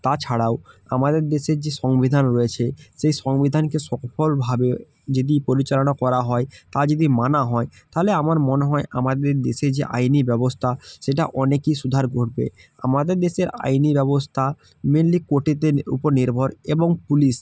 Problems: none marked